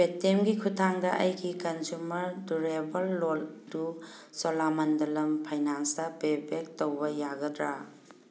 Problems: none marked